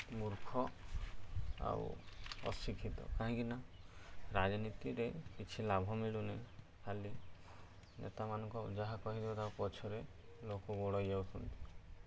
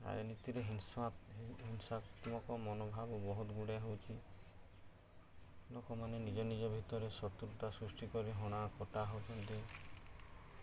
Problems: none marked